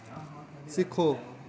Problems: background sounds at intervals, echo